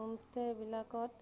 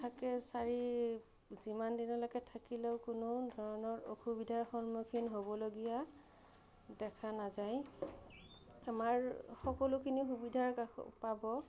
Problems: none marked